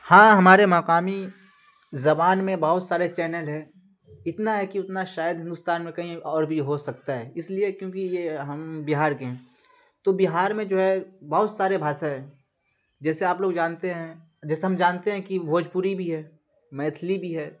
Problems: constant background noise